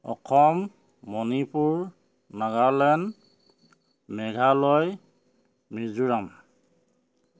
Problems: none marked